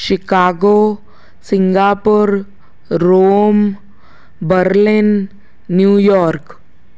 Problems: constant background noise, echo